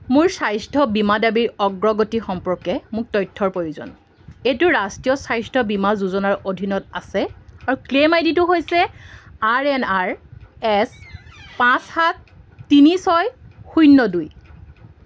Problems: constant background noise